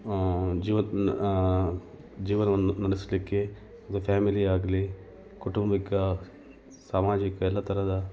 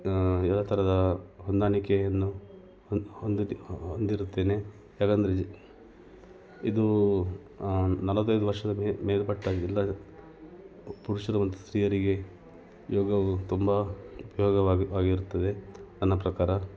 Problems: background sounds at intervals